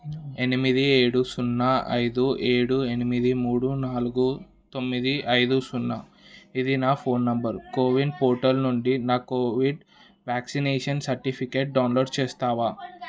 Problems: background conversations at intervals